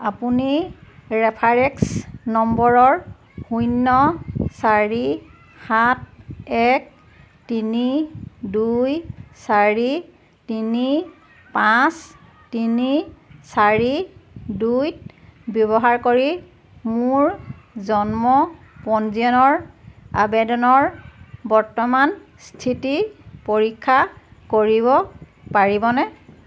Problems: constant background noise, background conversations at intervals